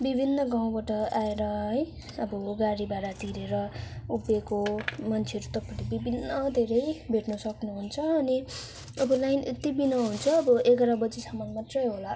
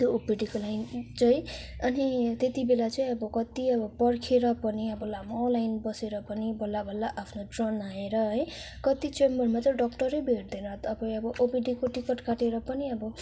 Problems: background sounds at intervals